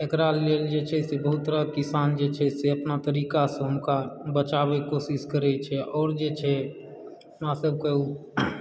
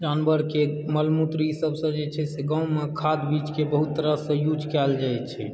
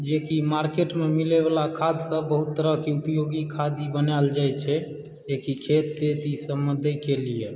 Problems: background sounds at intervals